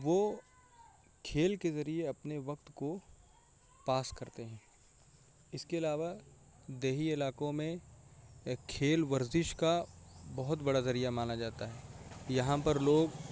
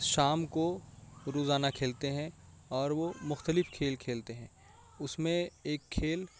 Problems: constant background noise, low volume